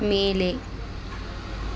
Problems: continuous background conversations